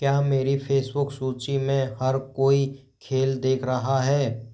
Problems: constant background noise